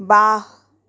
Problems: background sounds at intervals